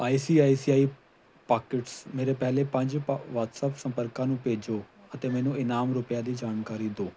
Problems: background sounds at intervals